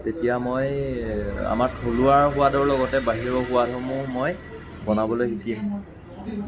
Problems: constant background noise